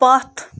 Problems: background sounds at intervals